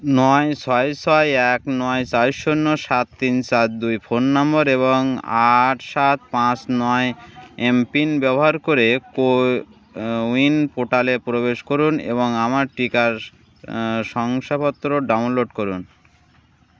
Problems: constant background noise, background conversations at intervals